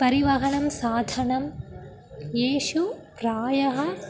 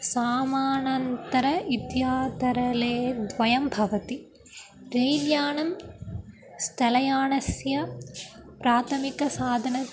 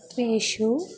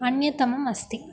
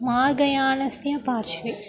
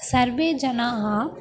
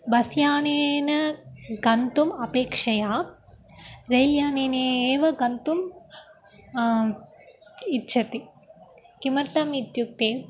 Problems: constant background noise